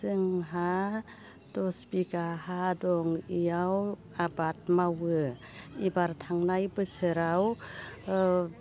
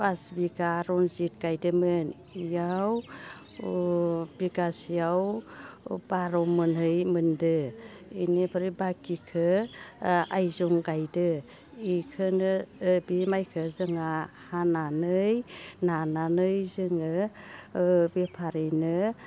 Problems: constant background noise